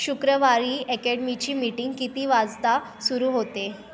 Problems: constant background noise, continuous background conversations